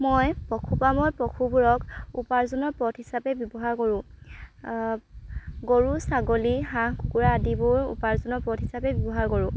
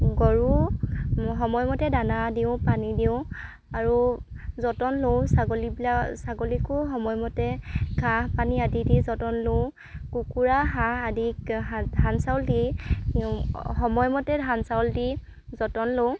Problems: background sounds at intervals